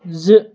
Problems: constant background noise